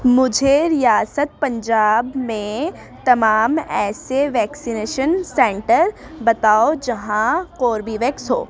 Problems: background sounds at intervals, continuous background conversations